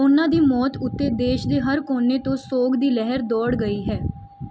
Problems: background sounds at intervals